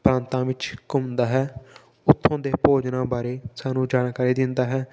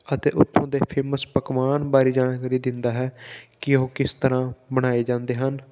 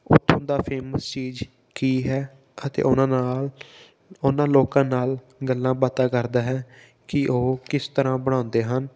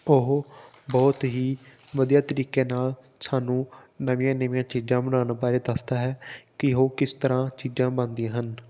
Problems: background sounds at intervals